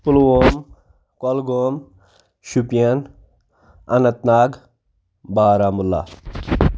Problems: none marked